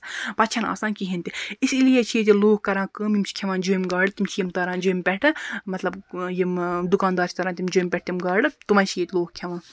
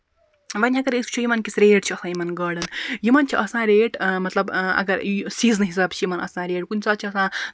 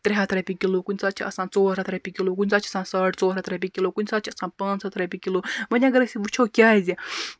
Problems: constant background noise